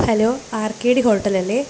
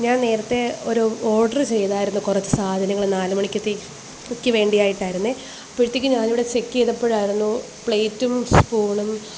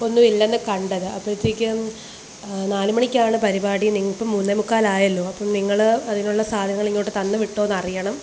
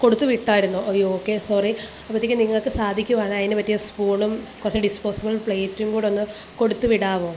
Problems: constant background noise